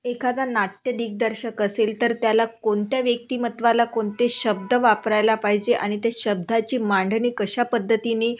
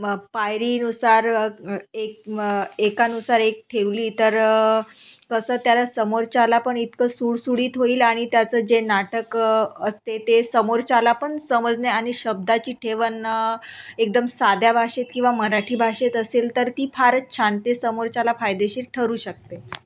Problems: none marked